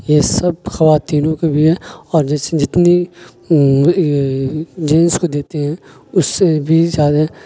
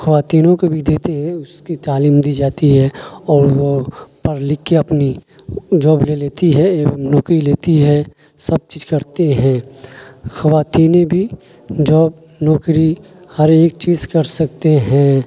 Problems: constant background noise